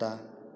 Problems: none marked